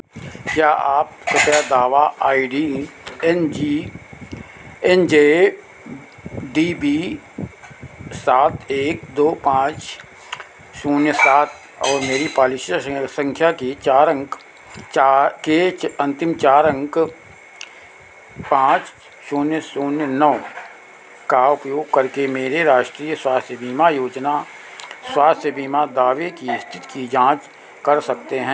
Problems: none marked